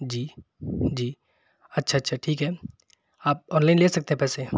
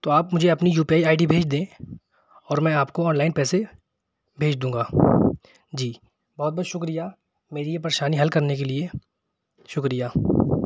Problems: background sounds at intervals